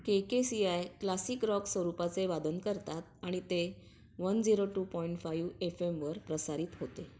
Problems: background sounds at intervals